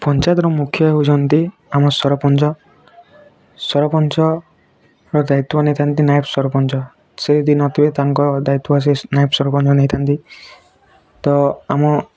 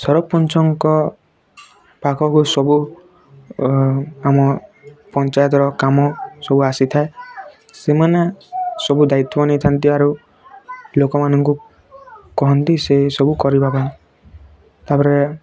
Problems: constant background noise, continuous background conversations